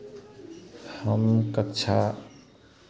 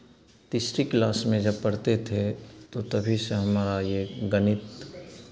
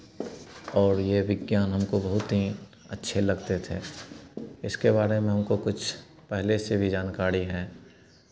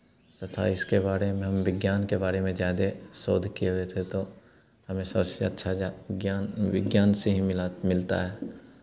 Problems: constant background noise